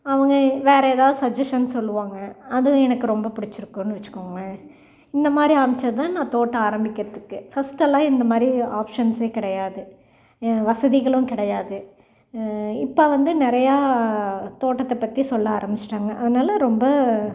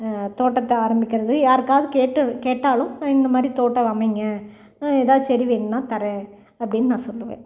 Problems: none marked